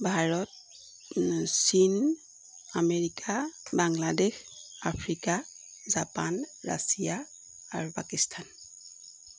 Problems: constant background noise